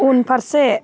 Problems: background sounds at intervals